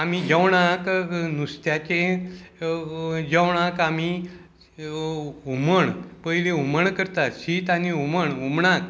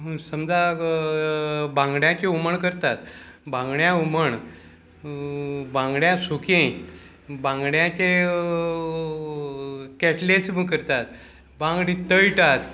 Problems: constant background noise